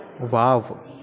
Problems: constant background noise